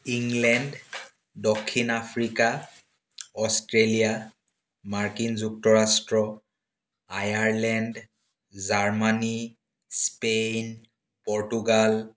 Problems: none marked